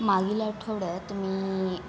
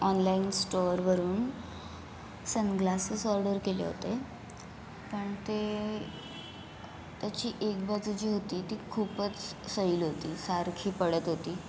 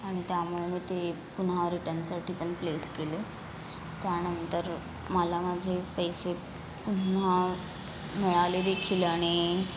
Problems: constant background noise